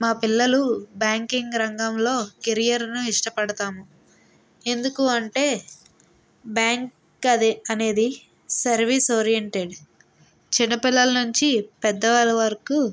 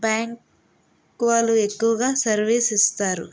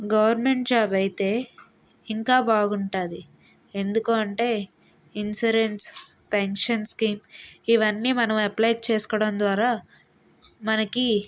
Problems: background sounds at intervals